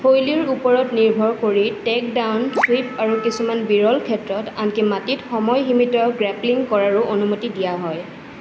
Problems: constant background noise